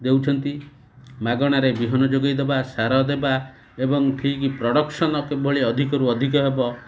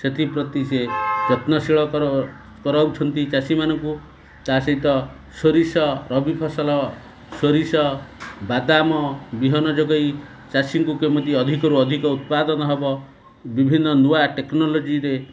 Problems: constant background noise